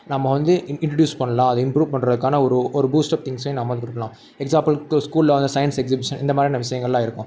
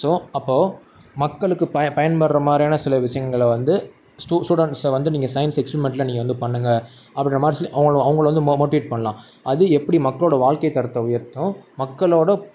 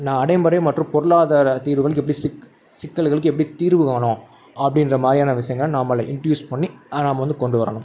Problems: none marked